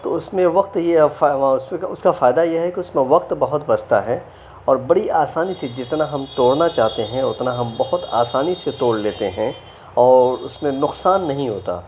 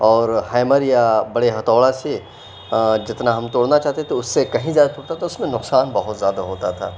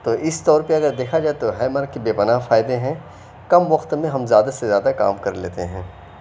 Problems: none marked